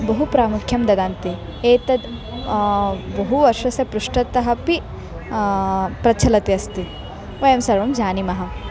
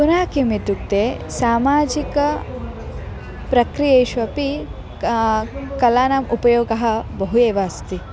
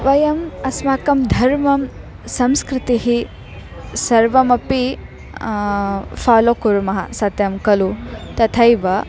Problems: background conversations at intervals